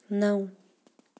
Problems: none marked